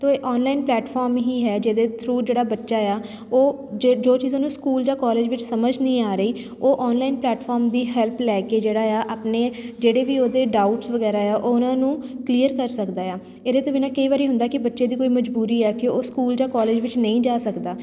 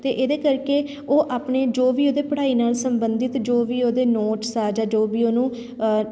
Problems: none marked